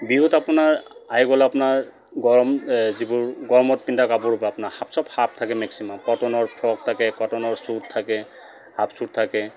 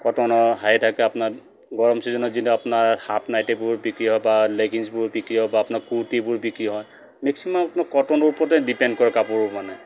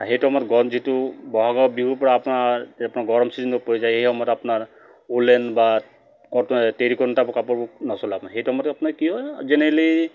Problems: none marked